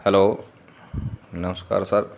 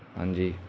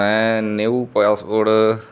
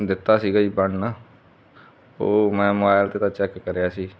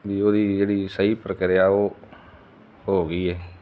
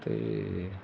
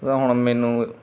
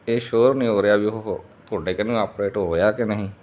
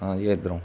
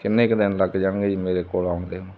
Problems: constant background noise